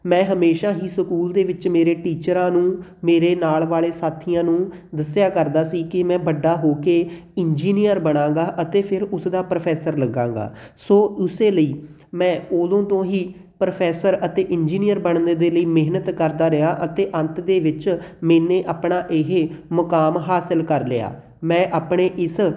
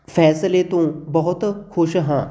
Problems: none marked